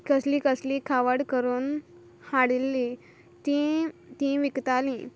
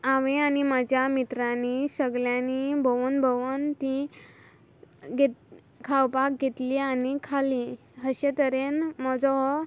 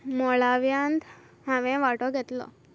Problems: constant background noise